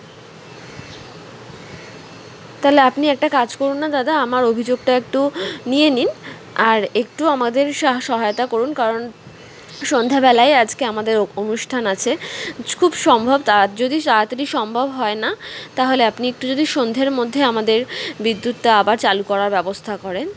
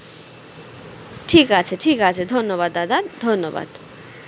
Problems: constant background noise